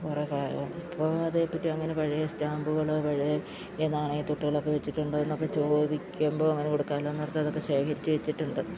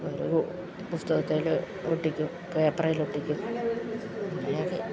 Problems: constant background noise, low volume